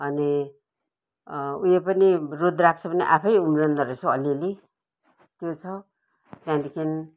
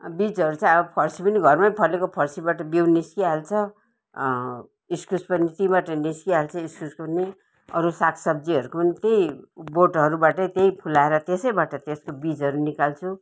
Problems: none marked